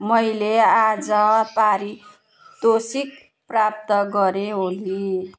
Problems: background sounds at intervals